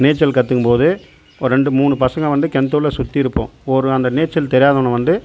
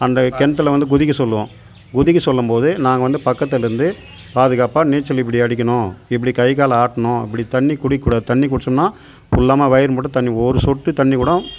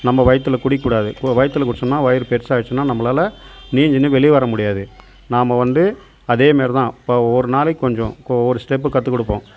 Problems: constant background noise